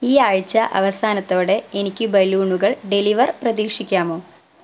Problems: none marked